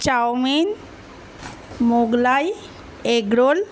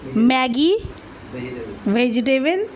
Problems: none marked